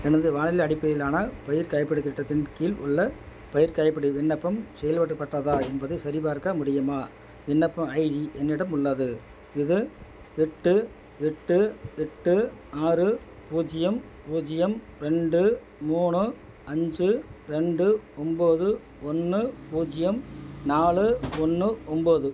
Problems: constant background noise